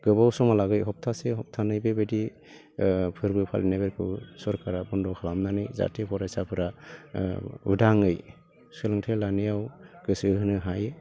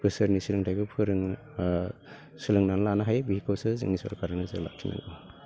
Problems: constant background noise